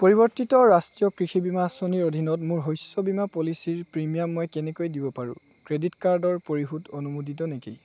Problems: none marked